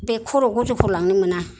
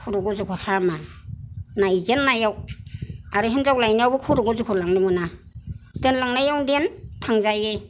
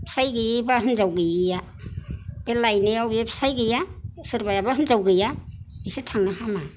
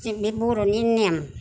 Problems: none marked